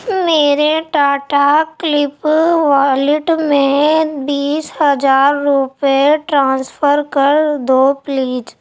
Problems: background sounds at intervals